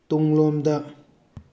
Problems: none marked